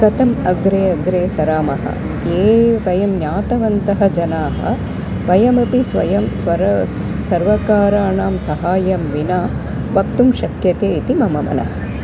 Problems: constant background noise